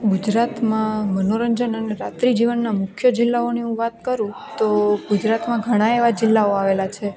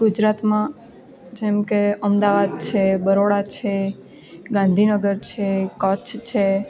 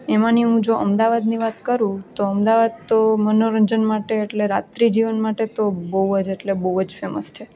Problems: none marked